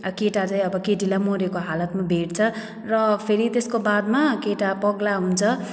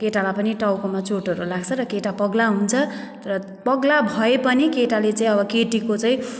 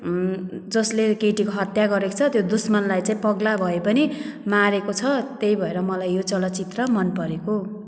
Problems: background sounds at intervals